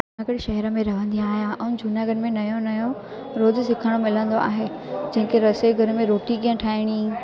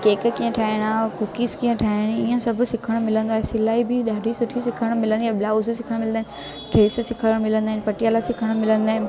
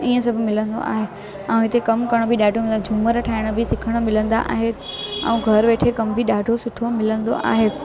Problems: constant background noise